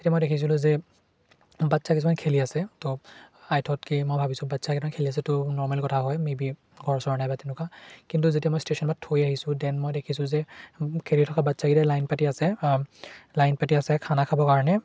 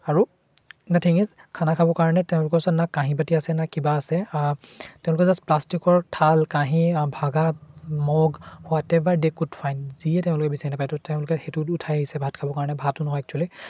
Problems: none marked